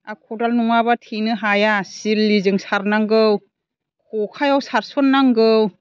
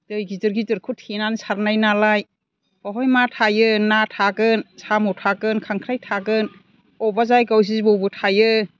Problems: none marked